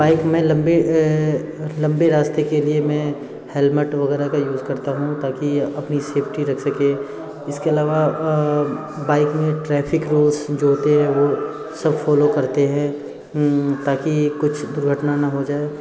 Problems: constant background noise